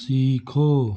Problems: constant background noise